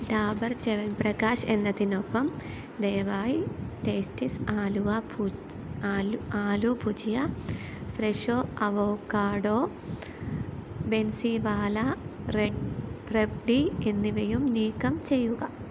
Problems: constant background noise, low volume